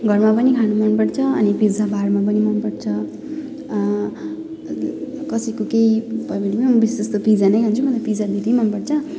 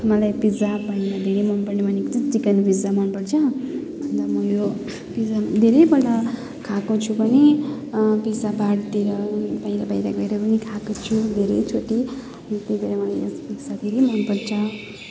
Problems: continuous background conversations